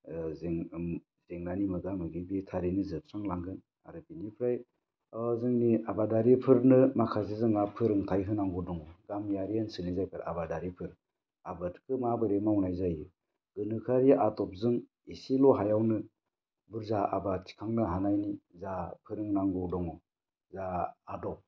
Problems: low volume